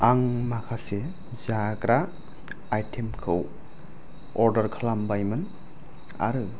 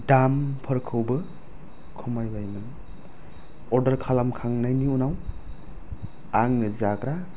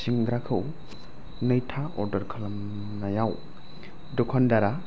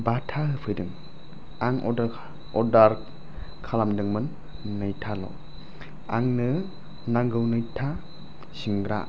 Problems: low volume